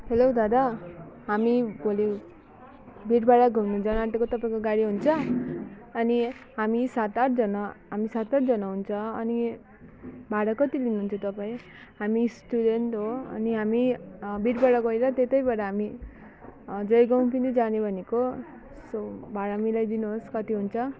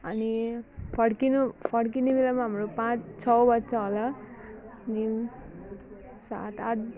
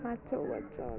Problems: background sounds at intervals